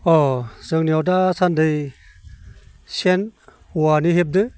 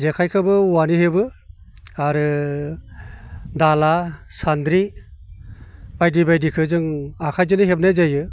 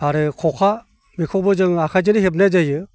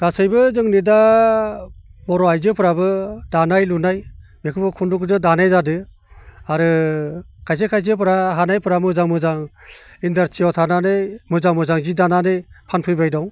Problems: constant background noise